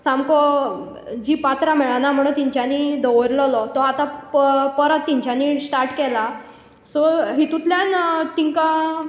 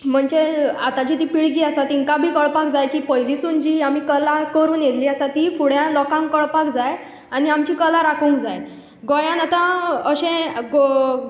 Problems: echo